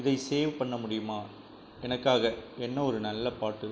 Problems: low volume